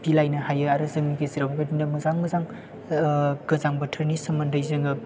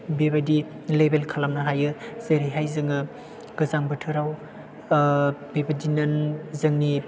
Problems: background sounds at intervals